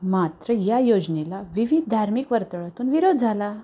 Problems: background sounds at intervals